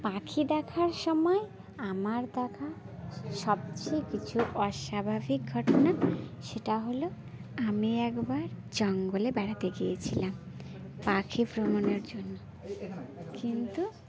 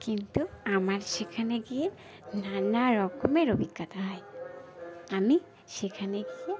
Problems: constant background noise